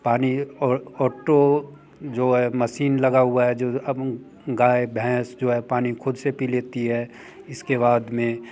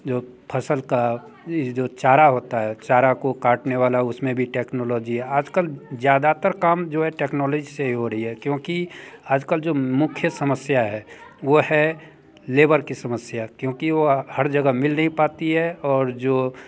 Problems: none marked